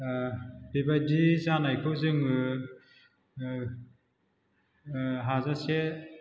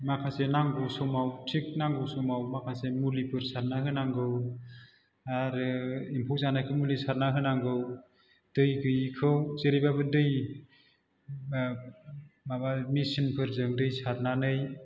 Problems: background sounds at intervals